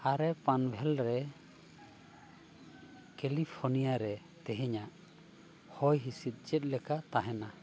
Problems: none marked